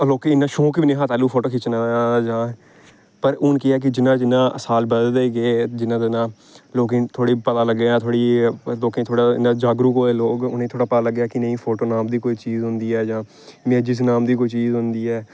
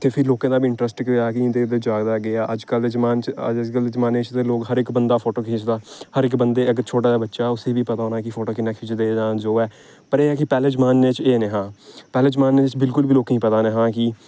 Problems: none marked